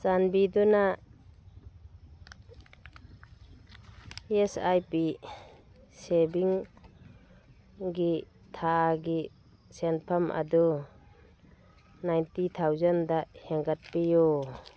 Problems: background sounds at intervals